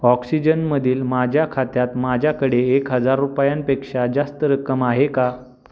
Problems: constant background noise